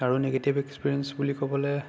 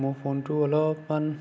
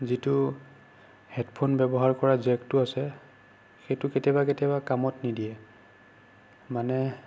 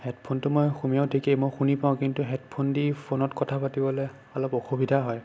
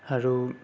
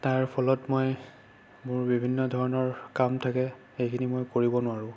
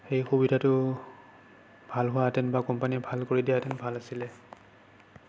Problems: constant background noise